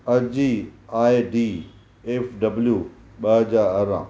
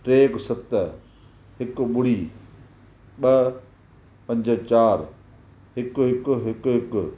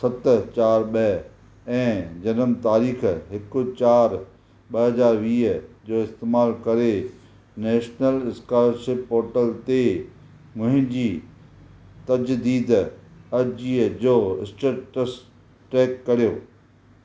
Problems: none marked